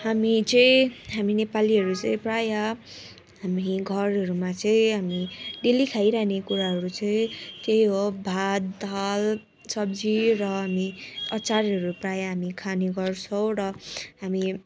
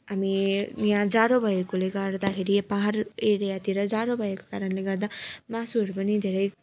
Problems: constant background noise, continuous background conversations